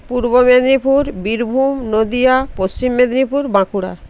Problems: constant background noise